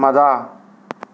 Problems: none marked